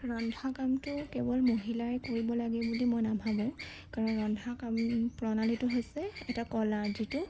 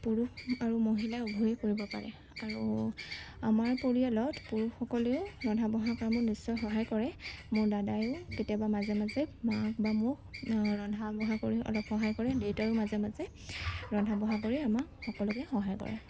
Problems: background sounds at intervals